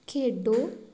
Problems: background sounds at intervals